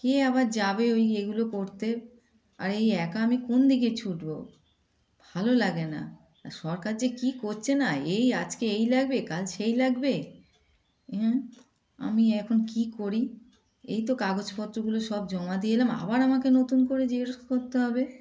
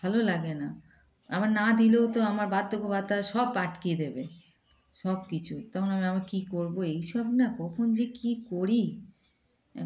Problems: constant background noise, background conversations at intervals